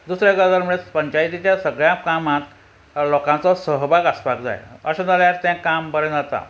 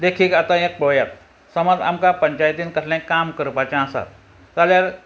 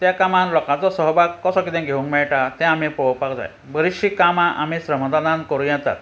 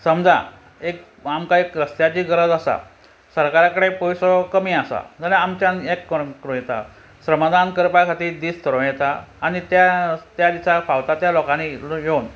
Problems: none marked